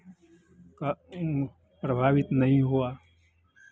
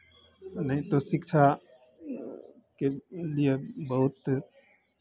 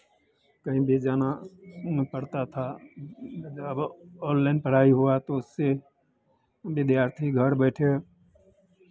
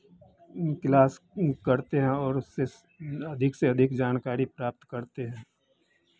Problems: constant background noise